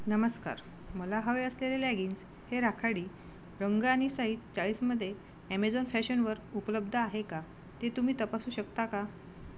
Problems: background sounds at intervals